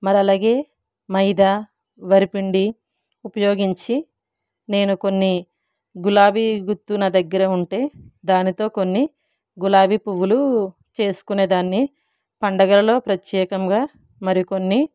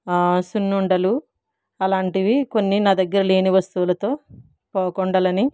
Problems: none marked